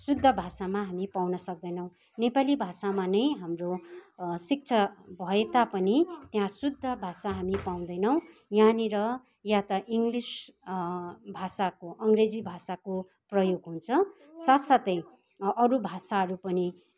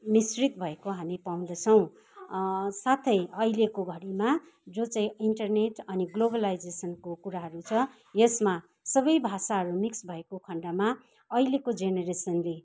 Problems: constant background noise